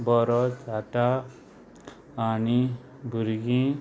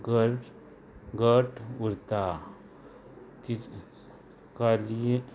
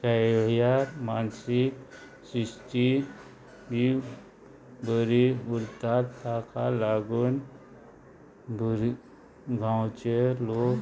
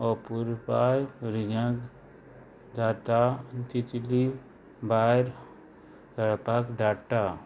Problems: constant background noise